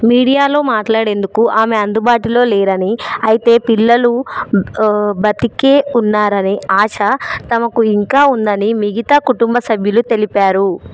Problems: background conversations at intervals